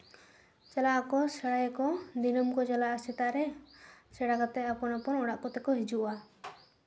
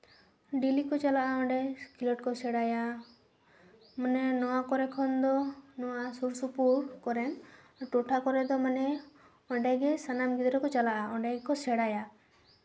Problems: none marked